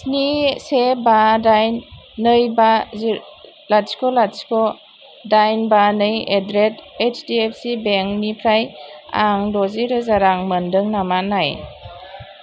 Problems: constant background noise